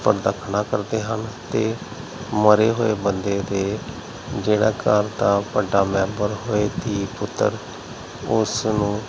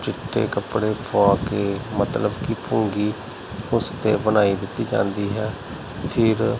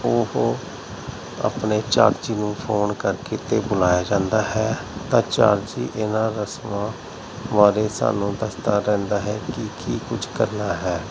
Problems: constant background noise